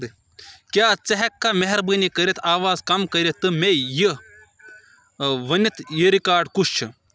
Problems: none marked